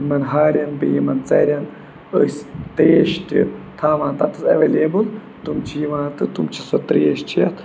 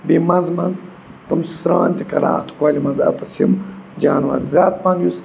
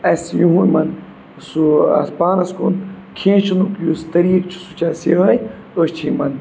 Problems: constant background noise